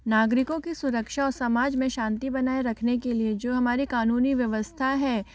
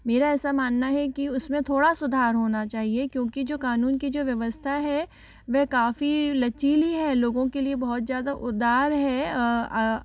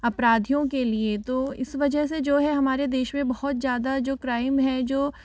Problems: background sounds at intervals